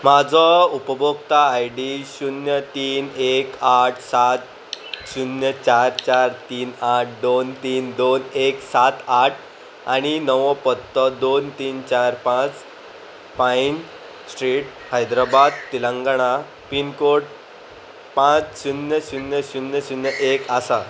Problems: constant background noise